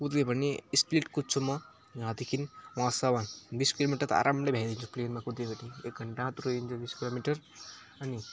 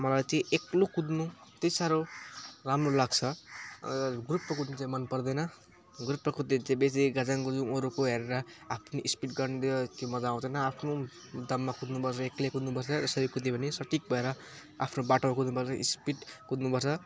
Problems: constant background noise